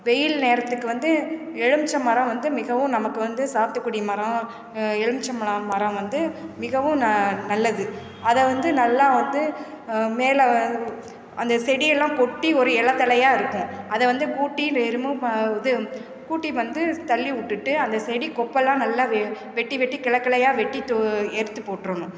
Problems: constant background noise